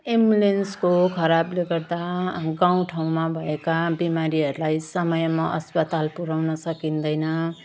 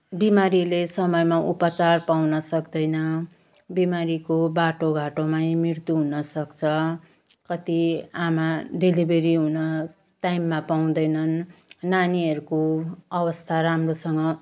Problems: none marked